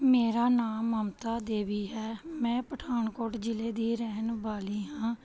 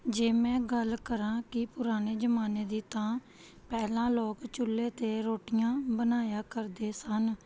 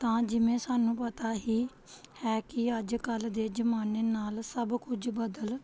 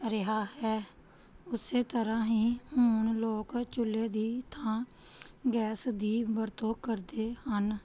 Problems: background sounds at intervals